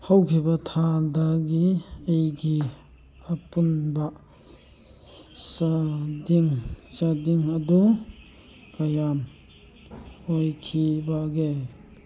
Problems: background sounds at intervals